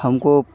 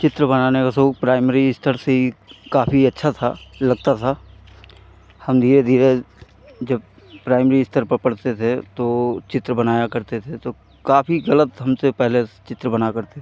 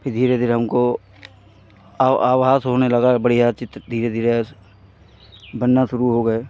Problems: background sounds at intervals